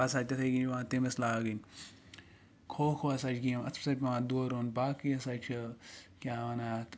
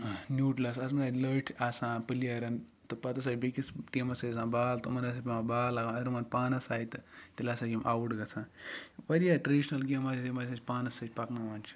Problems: none marked